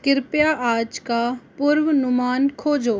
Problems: constant background noise